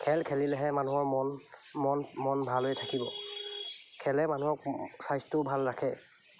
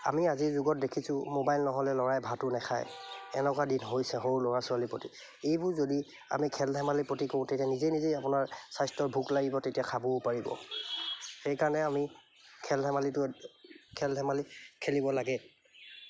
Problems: none marked